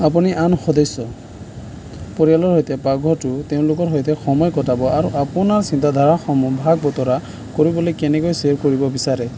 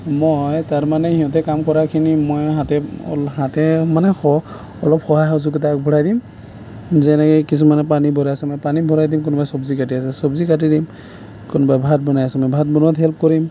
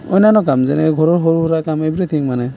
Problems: none marked